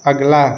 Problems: background sounds at intervals